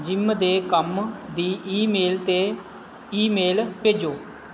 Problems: none marked